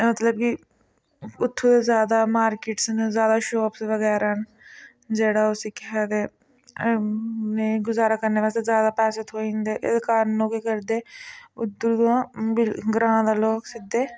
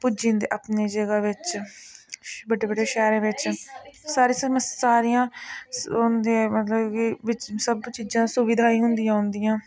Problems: constant background noise